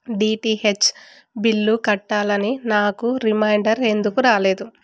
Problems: none marked